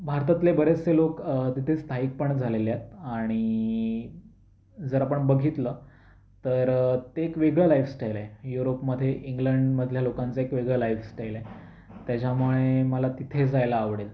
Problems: constant background noise, background conversations at intervals